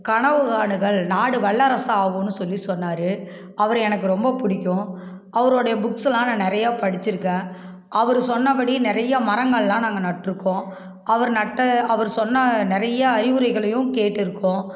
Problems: background conversations at intervals